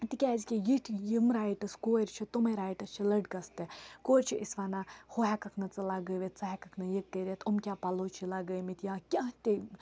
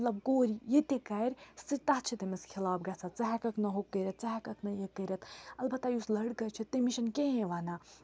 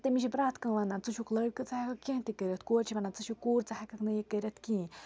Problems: background sounds at intervals